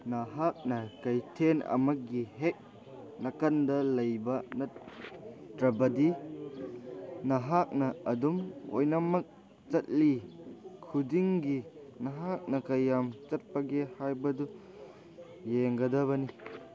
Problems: background conversations at intervals